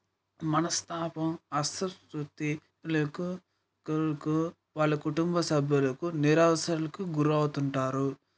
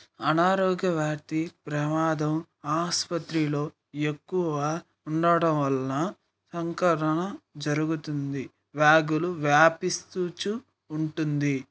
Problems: background sounds at intervals